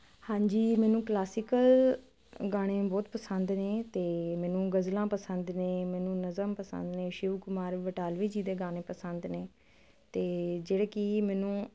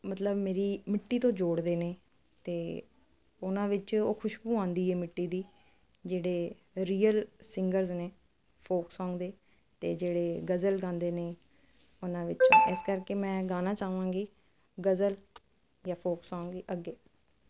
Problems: constant background noise